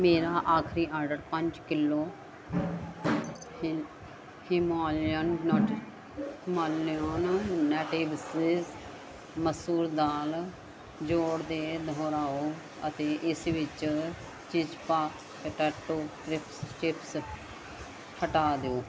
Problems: constant background noise